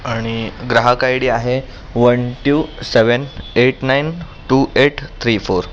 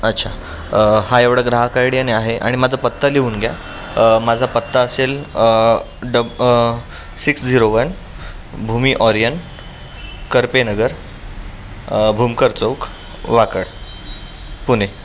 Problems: constant background noise, background conversations at intervals